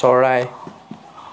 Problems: none marked